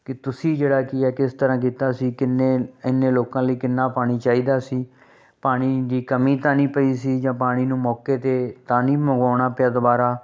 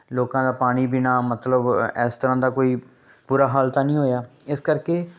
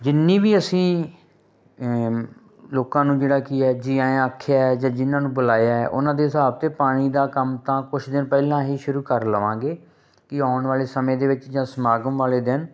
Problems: background sounds at intervals